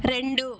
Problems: constant background noise